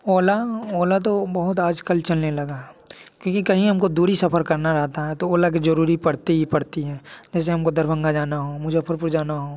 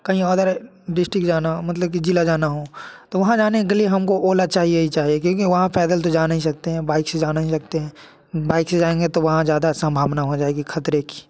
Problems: background sounds at intervals